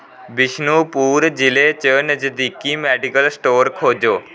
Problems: background sounds at intervals